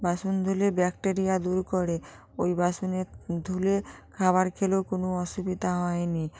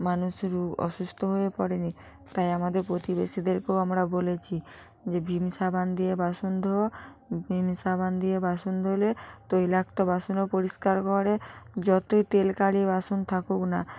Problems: background conversations at intervals